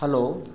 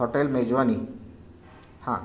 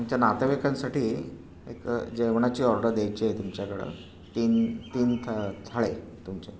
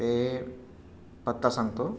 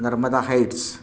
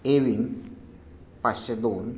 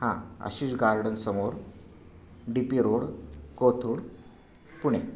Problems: constant background noise